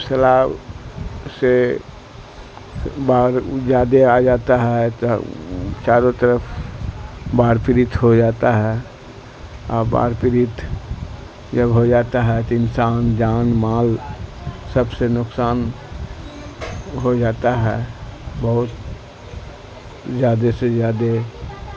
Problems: constant background noise, low volume